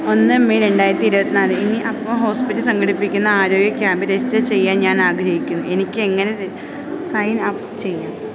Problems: none marked